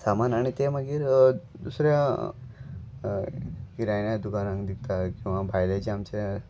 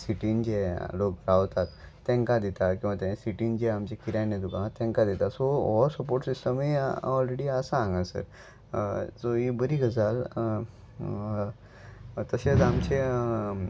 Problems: background sounds at intervals